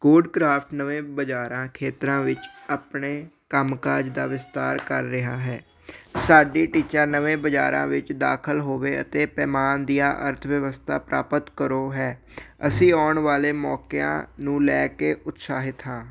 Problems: background sounds at intervals